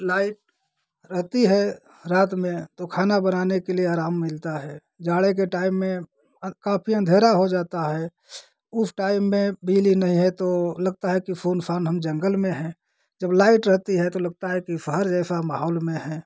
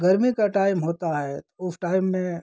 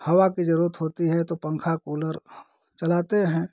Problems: constant background noise